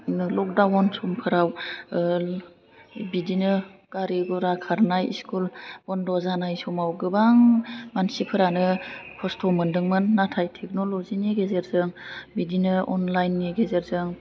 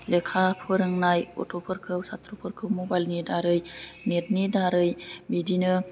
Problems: low volume